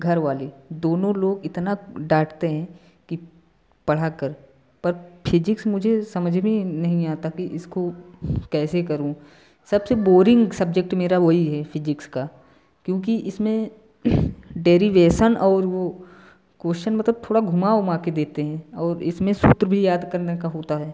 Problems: background sounds at intervals